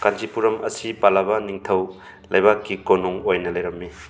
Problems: constant background noise, background conversations at intervals